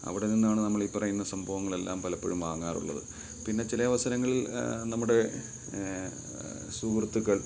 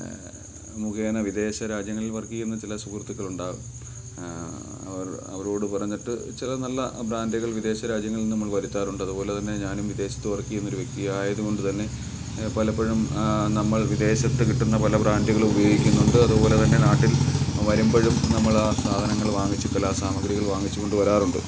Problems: background sounds at intervals